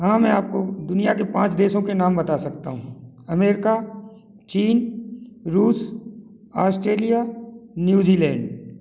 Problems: none marked